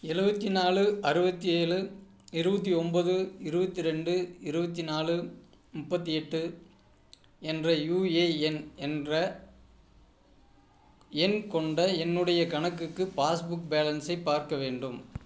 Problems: none marked